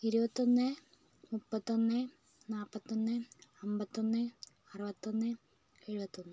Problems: low volume